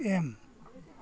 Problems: none marked